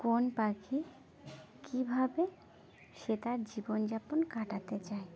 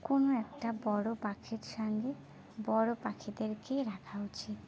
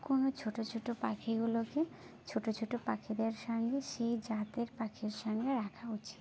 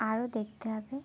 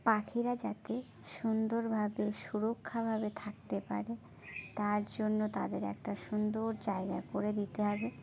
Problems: constant background noise